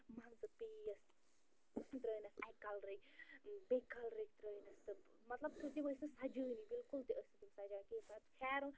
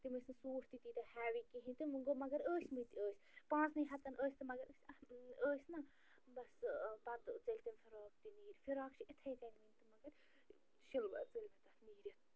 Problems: constant background noise, low volume